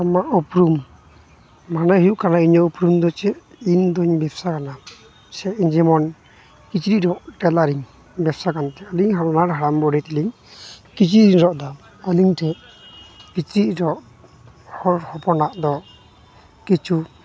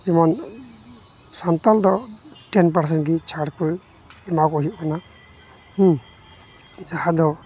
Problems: constant background noise, continuous background conversations